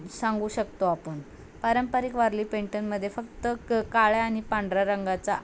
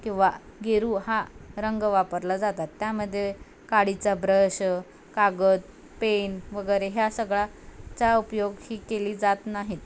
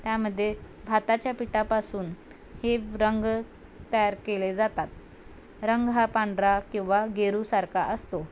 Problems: background sounds at intervals